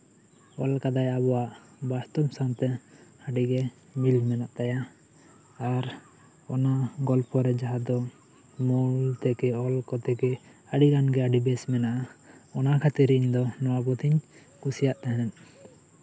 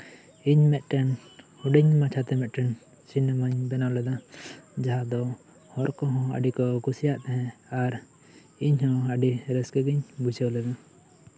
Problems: constant background noise